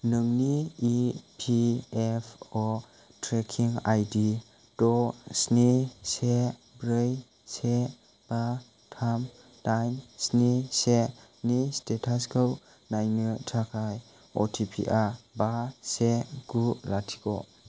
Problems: none marked